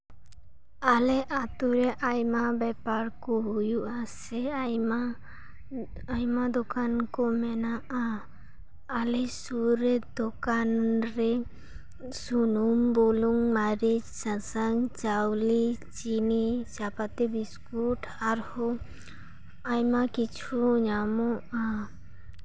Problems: none marked